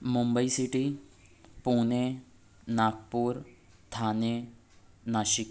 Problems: none marked